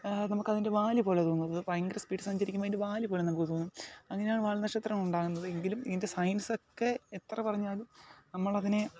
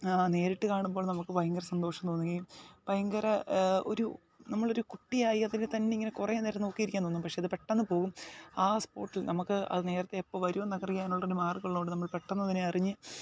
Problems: background conversations at intervals, low volume